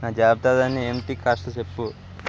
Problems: constant background noise